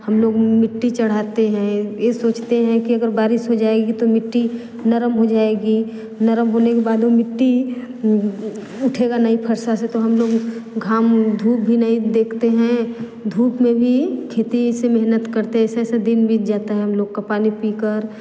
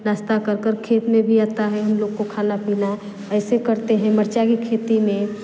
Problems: background conversations at intervals